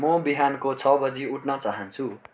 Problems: none marked